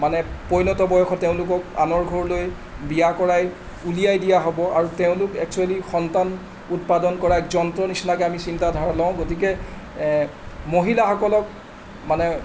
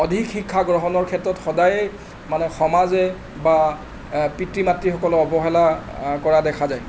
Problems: constant background noise